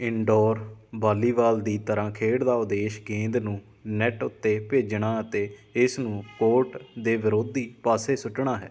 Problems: background sounds at intervals